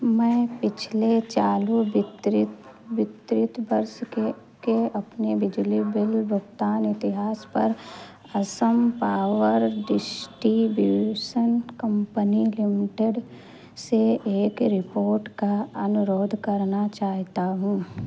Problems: constant background noise